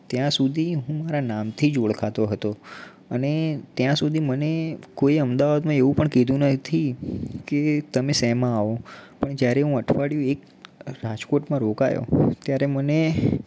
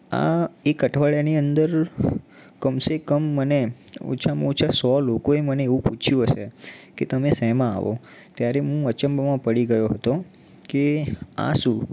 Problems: background sounds at intervals